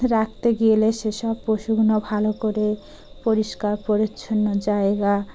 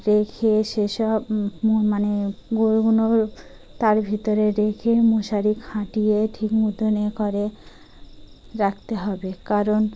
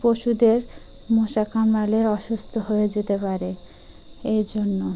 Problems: constant background noise